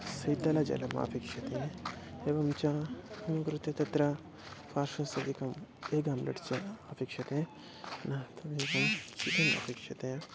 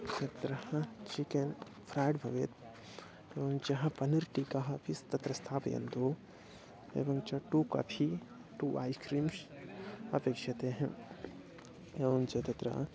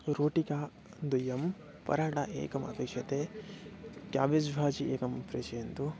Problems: constant background noise, low volume